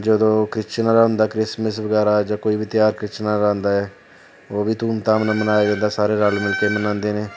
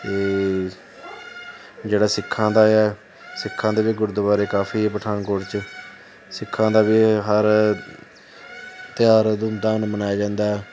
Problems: constant background noise